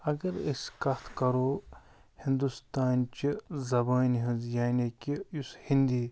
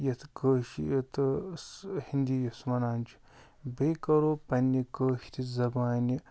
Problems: none marked